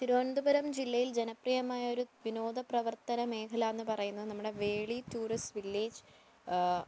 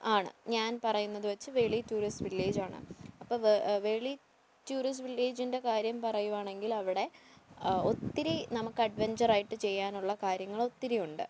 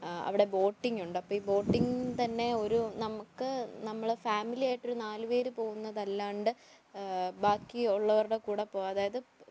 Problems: constant background noise, low volume